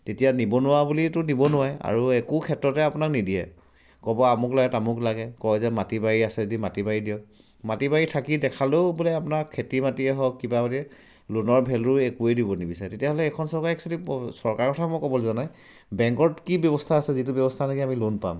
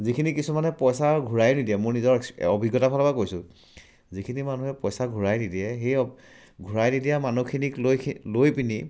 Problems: none marked